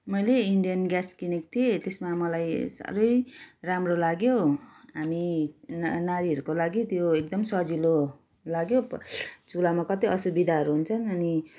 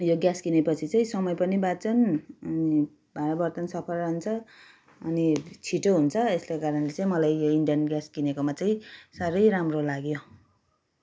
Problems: background sounds at intervals